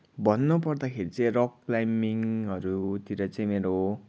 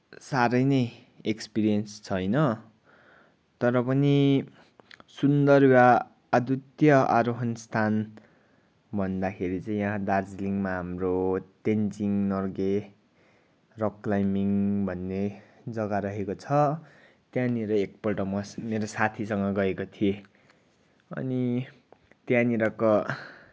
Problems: background sounds at intervals